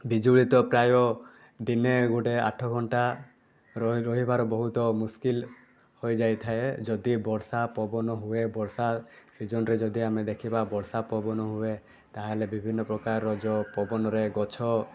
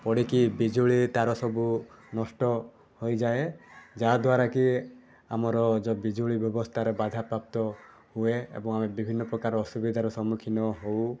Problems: constant background noise, continuous background conversations